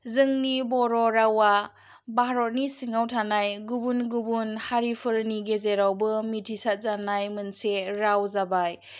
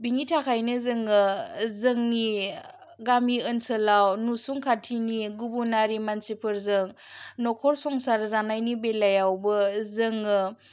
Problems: none marked